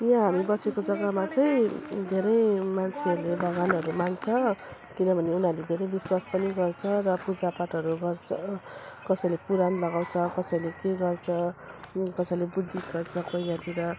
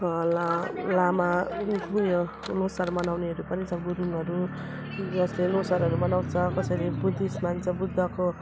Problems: constant background noise